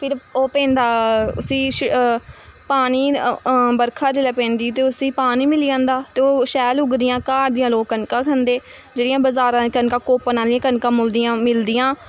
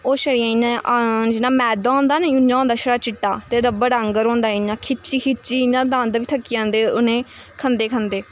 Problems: constant background noise